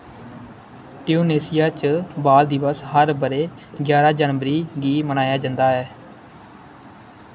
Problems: constant background noise